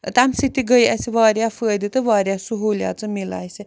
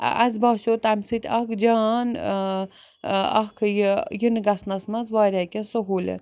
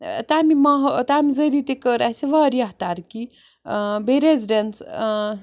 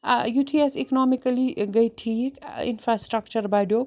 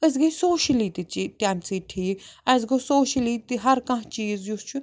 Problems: background sounds at intervals